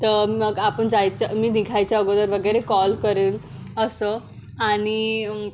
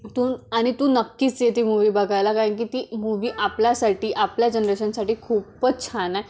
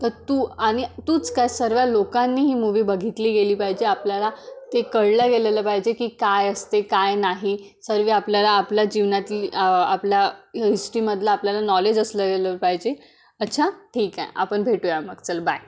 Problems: background sounds at intervals